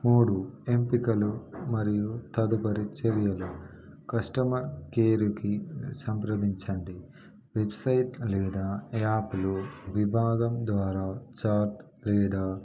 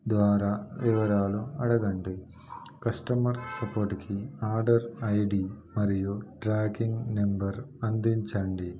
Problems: background conversations at intervals